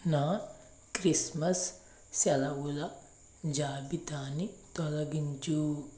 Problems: background sounds at intervals